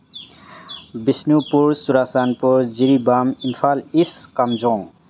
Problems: background sounds at intervals